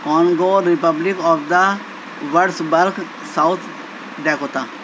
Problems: constant background noise